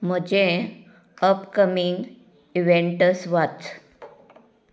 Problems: background sounds at intervals